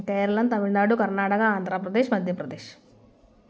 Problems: none marked